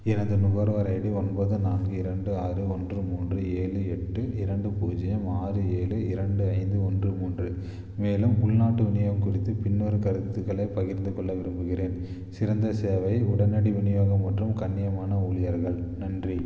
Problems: low volume